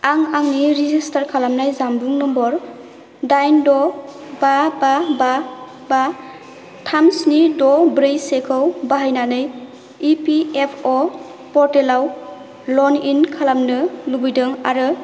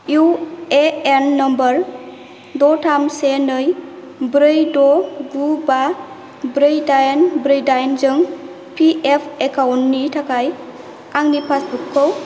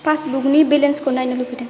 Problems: constant background noise